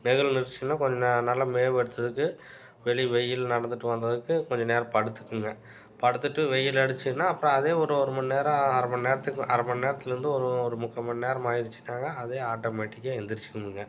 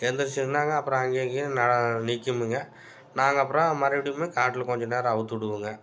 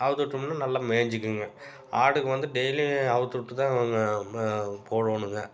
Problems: none marked